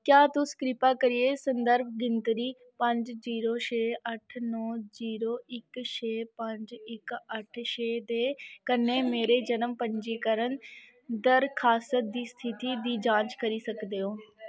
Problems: none marked